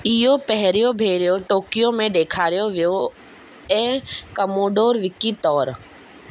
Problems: constant background noise